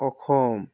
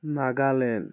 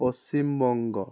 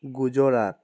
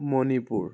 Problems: background sounds at intervals